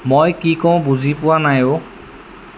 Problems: constant background noise